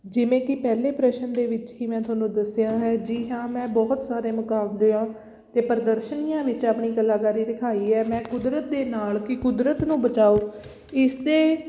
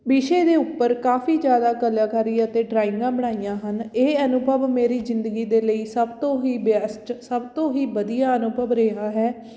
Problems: background sounds at intervals